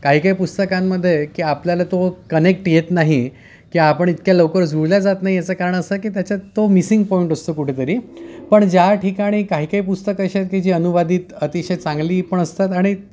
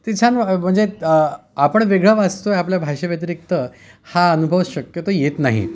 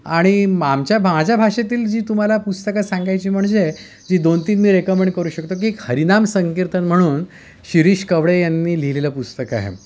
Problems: constant background noise, background conversations at intervals